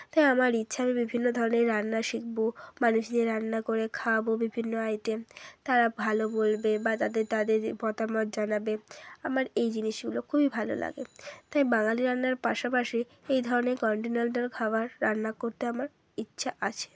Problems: none marked